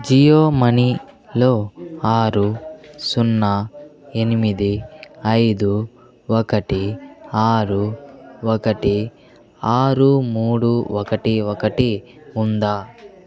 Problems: continuous background conversations